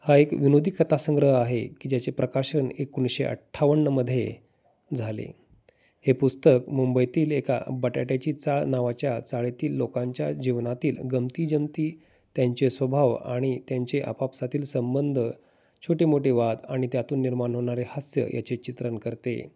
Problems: constant background noise, background conversations at intervals